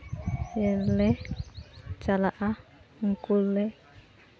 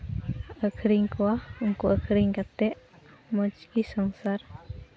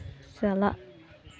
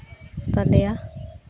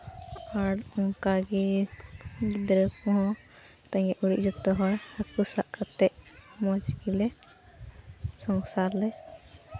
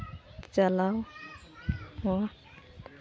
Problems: constant background noise